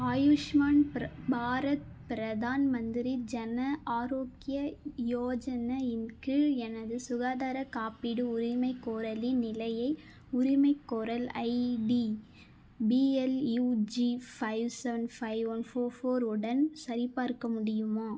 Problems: none marked